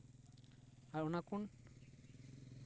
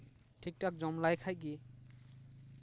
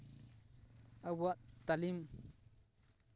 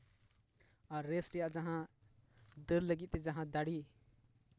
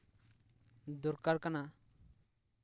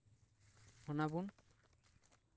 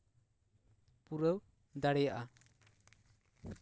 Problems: low volume